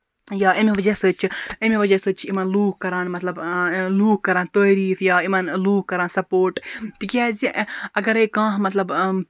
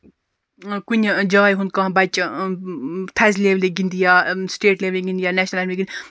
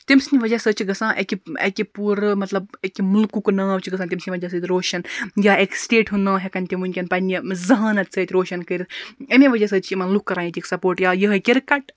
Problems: none marked